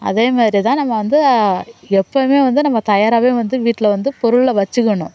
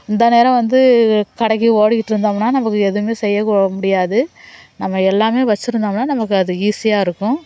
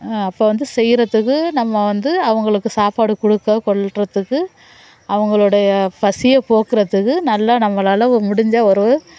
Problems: background sounds at intervals, background conversations at intervals